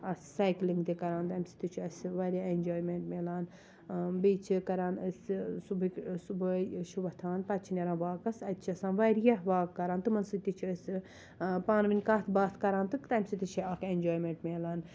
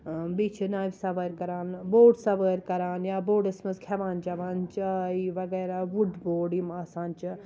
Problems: none marked